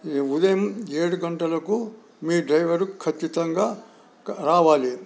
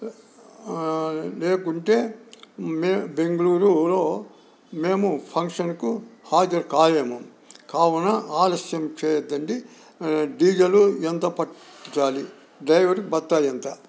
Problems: none marked